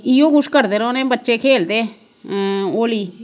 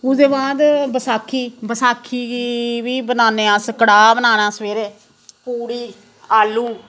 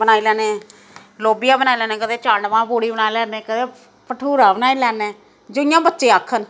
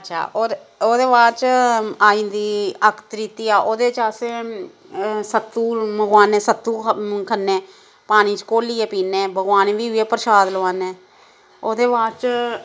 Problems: constant background noise